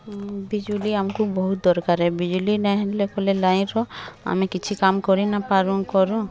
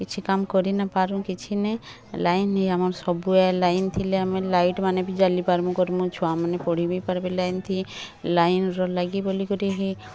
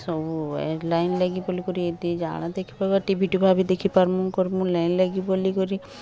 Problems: constant background noise